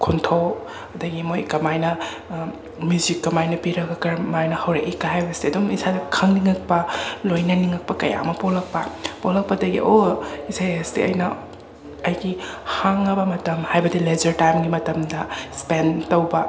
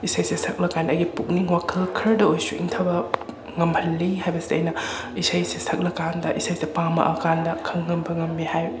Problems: constant background noise, continuous background conversations